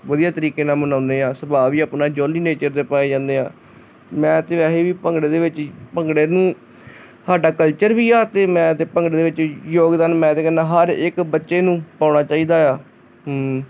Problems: constant background noise